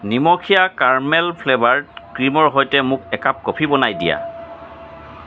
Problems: constant background noise